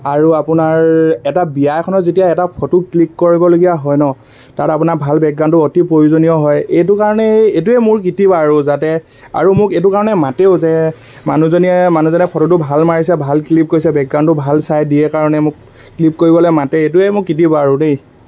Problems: constant background noise